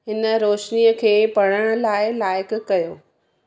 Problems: background sounds at intervals, echo